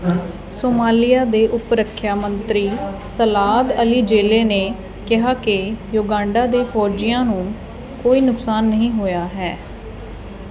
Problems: continuous background conversations